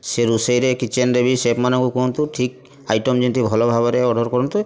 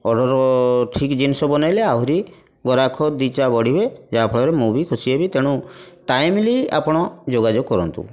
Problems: constant background noise